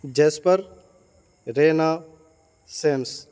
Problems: constant background noise